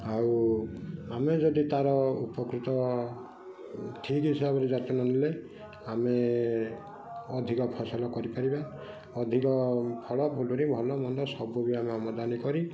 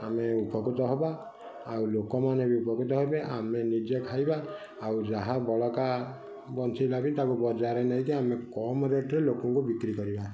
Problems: constant background noise, continuous background conversations